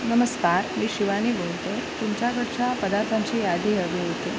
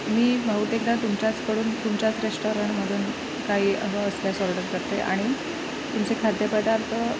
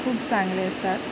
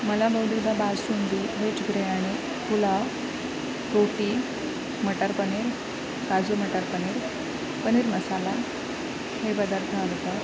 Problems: constant background noise, background conversations at intervals